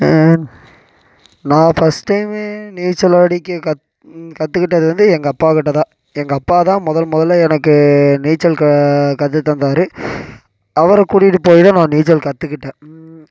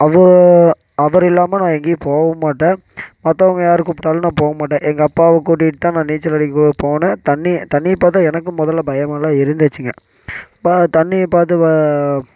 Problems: background sounds at intervals